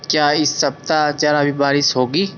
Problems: constant background noise